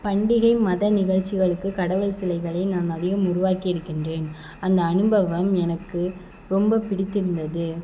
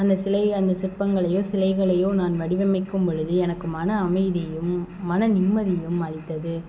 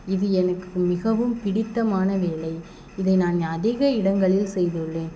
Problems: background sounds at intervals